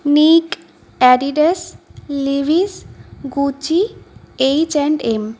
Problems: constant background noise